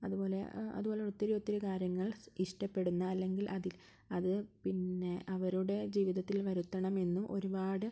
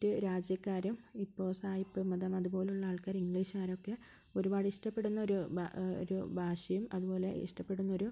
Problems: none marked